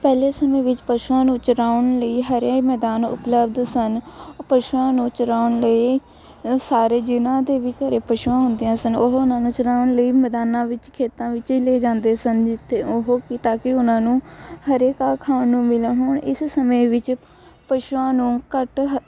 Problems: constant background noise, continuous background conversations